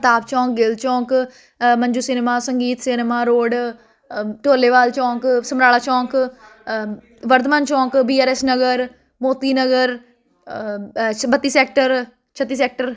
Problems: constant background noise